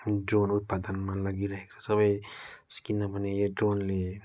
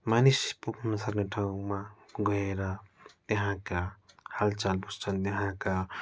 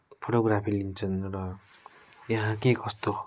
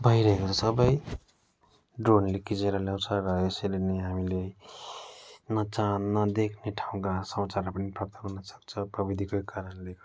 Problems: background sounds at intervals